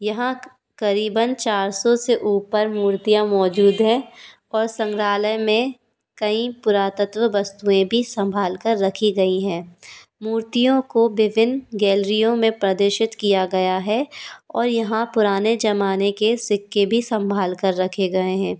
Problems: background sounds at intervals